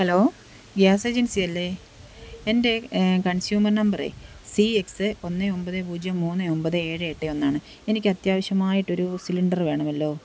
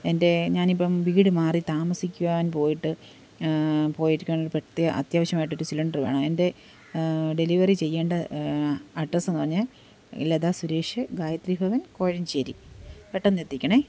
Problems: background sounds at intervals